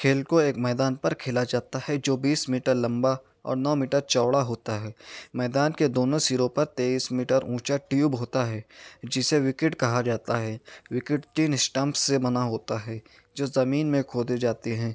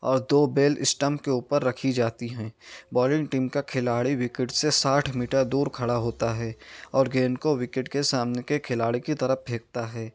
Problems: none marked